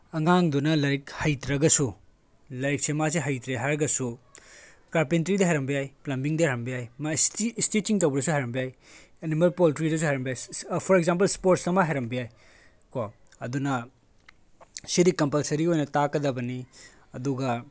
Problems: background sounds at intervals